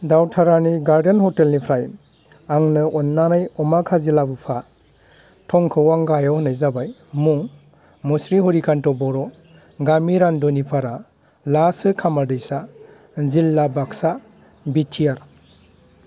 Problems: constant background noise